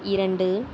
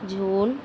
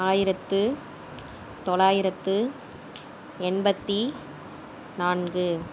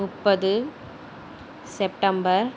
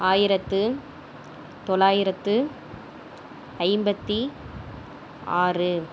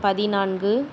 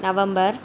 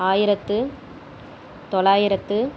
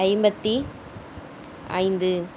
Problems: none marked